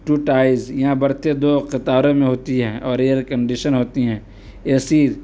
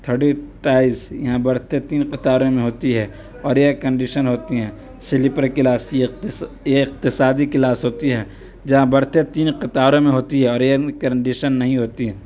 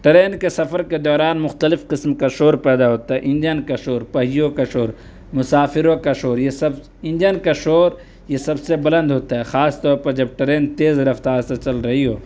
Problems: none marked